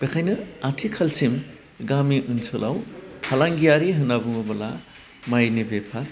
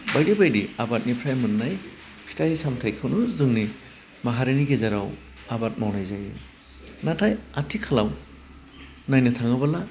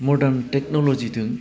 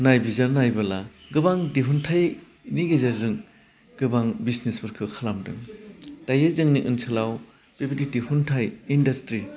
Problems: constant background noise